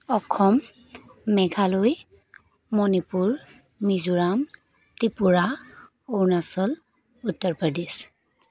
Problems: continuous background conversations